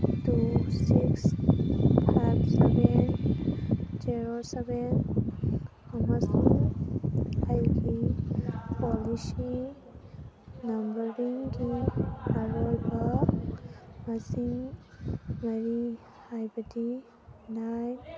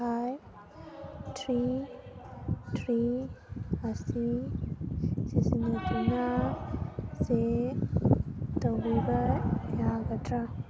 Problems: constant background noise, background conversations at intervals